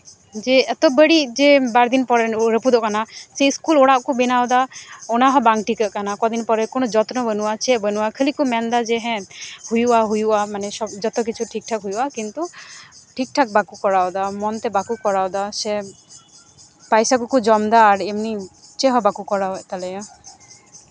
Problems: none marked